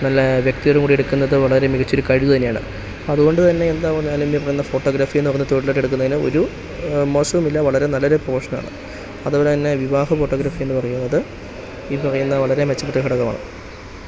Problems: constant background noise